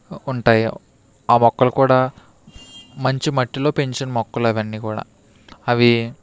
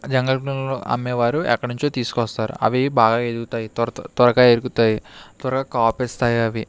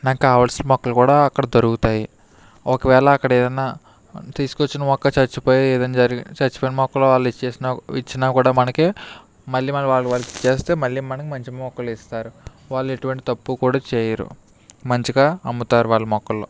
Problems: constant background noise